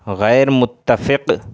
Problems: none marked